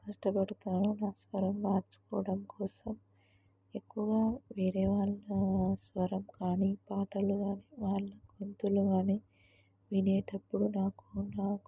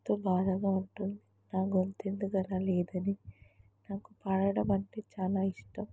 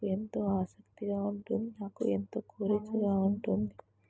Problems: low volume